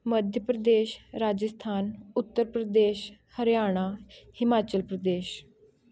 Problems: none marked